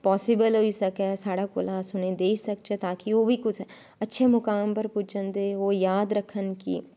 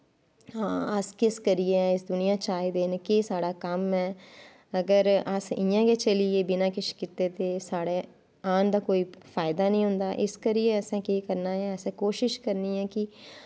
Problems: none marked